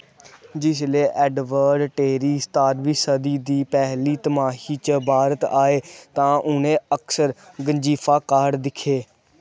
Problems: background sounds at intervals